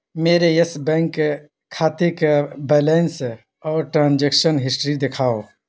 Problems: constant background noise